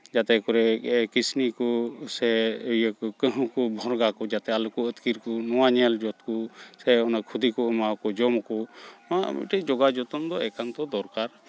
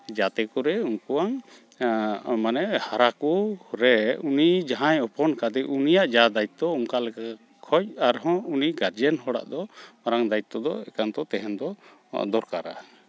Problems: constant background noise, background conversations at intervals